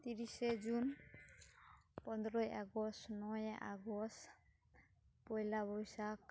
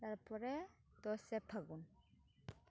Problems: none marked